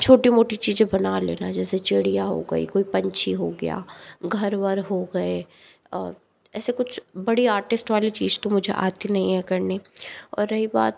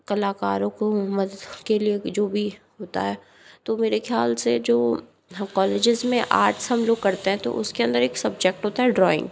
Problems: background sounds at intervals